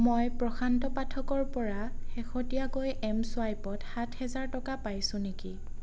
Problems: constant background noise